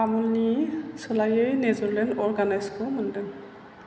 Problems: low volume